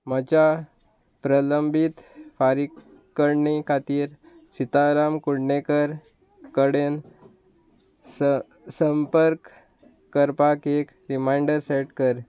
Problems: constant background noise